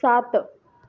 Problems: none marked